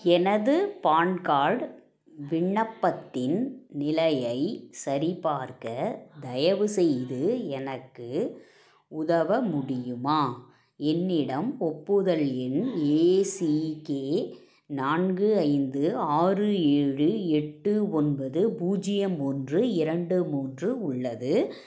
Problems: background sounds at intervals